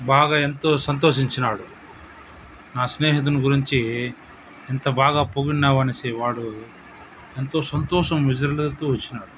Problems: constant background noise